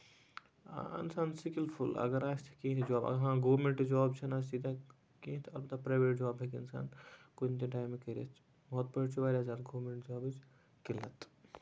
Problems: constant background noise